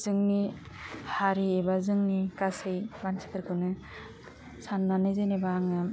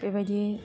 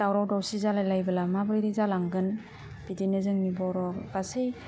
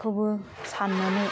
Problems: low volume